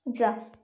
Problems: background sounds at intervals